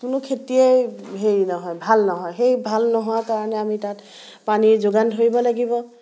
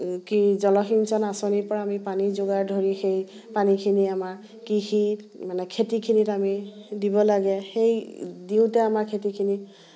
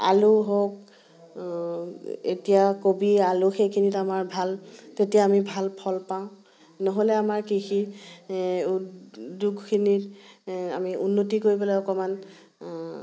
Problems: background conversations at intervals